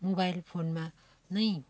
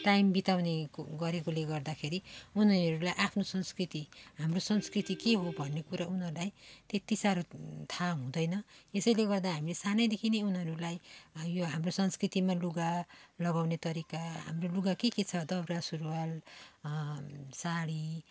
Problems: background sounds at intervals, background conversations at intervals